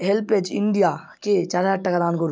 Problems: background sounds at intervals